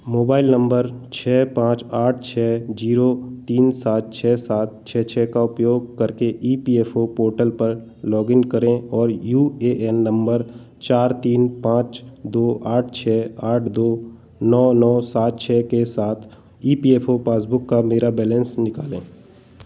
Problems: constant background noise